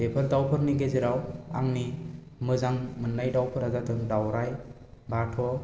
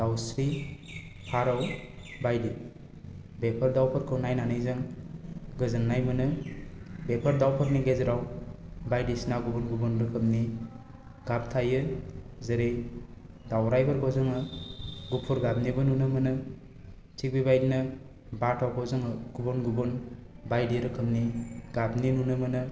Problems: low volume